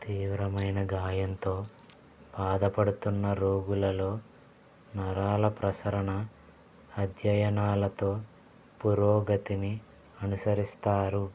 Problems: constant background noise, low volume